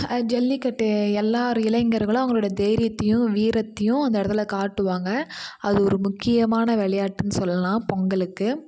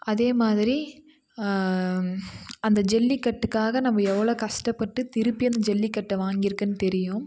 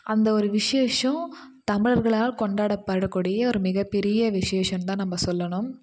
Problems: none marked